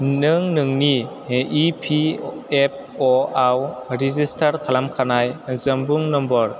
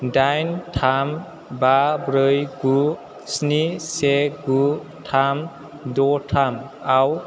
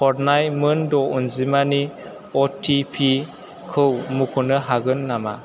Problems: constant background noise